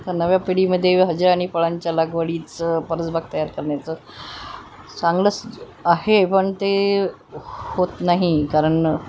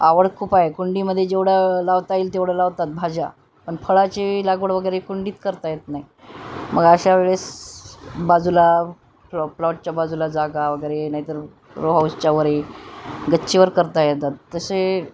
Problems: none marked